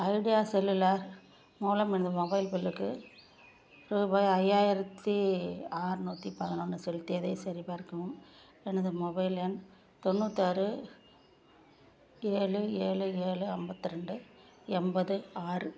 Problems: low volume